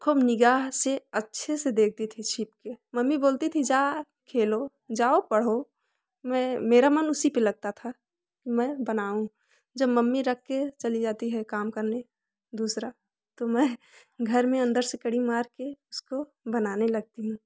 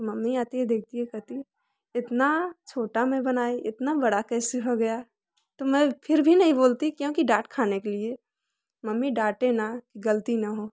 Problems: none marked